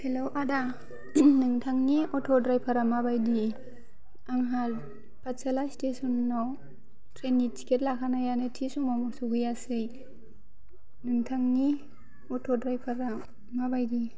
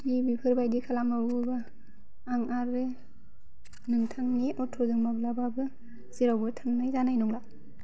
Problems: low volume